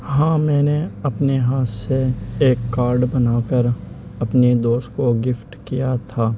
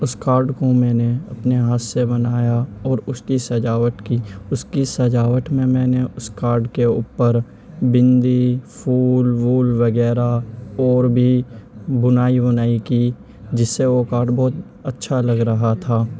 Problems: constant background noise